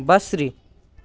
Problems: background sounds at intervals